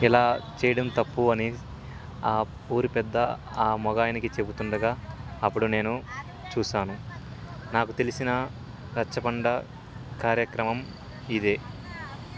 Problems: constant background noise, continuous background conversations